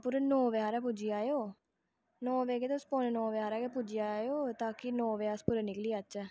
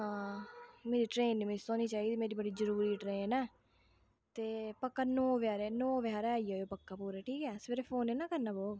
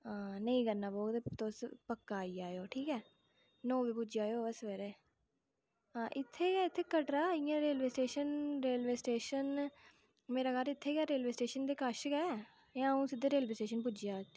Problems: low volume